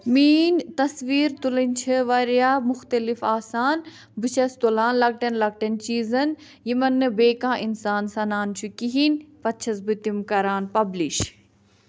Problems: none marked